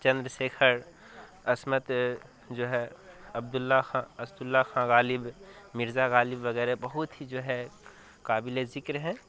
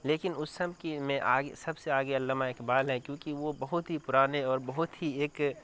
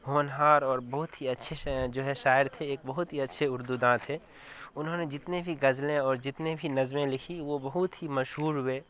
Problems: constant background noise